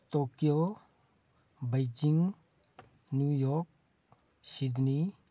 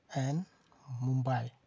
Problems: none marked